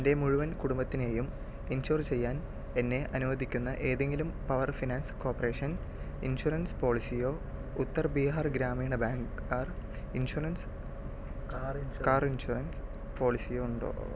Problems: background conversations at intervals, low volume